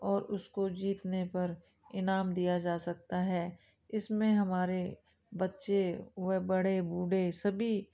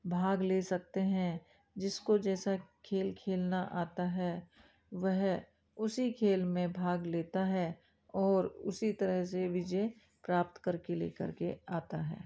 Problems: background sounds at intervals, background conversations at intervals